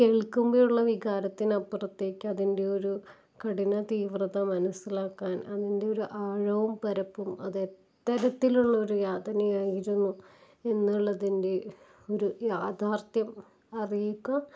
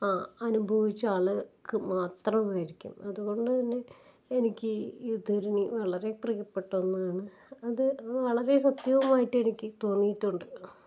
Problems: low volume